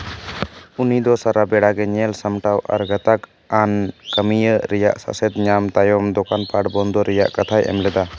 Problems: none marked